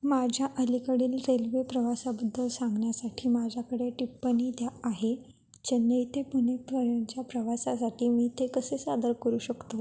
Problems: background sounds at intervals